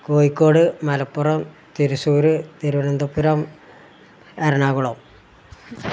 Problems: none marked